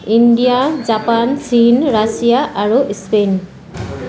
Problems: constant background noise, background conversations at intervals